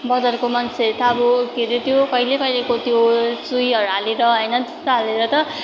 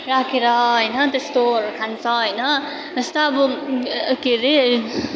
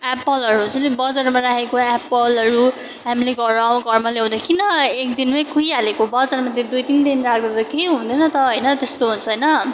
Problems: continuous background conversations